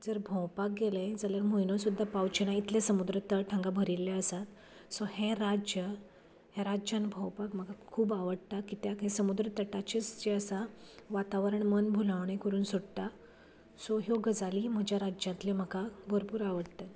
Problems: none marked